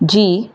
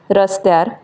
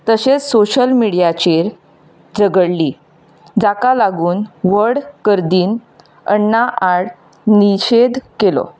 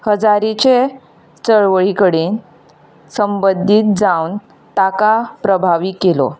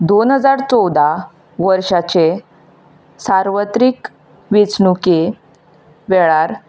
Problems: none marked